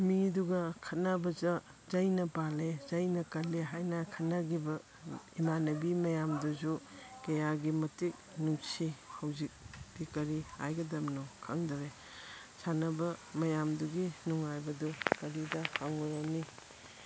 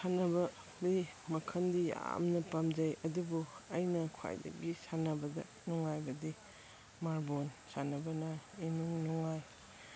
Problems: background sounds at intervals